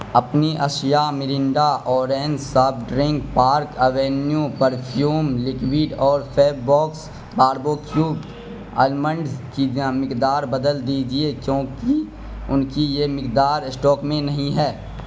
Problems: constant background noise